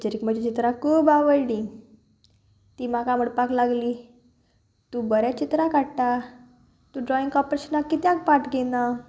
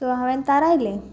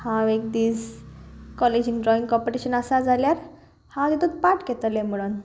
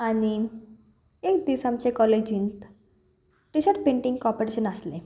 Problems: none marked